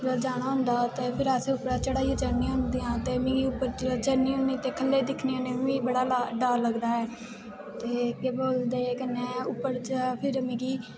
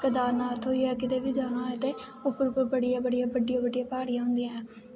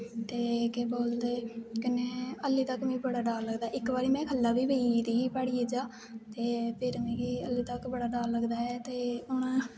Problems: constant background noise